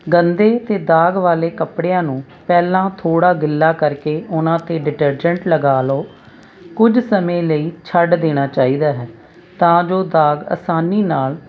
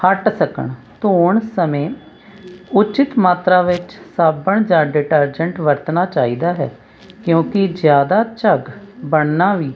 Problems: constant background noise